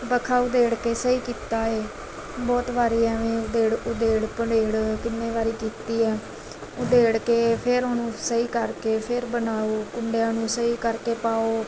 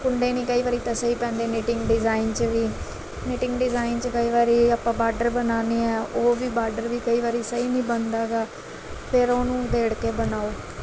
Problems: background sounds at intervals